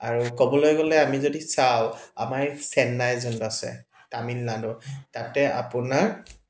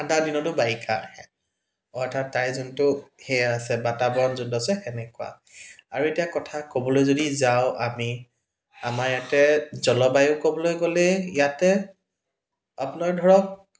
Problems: background sounds at intervals